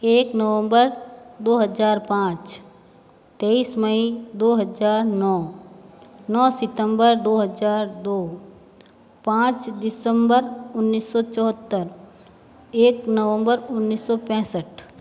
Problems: constant background noise